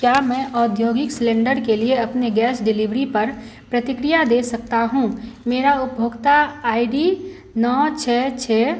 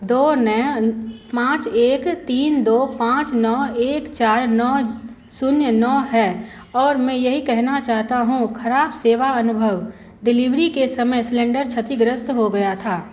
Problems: none marked